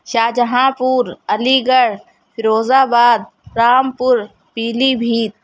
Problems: background sounds at intervals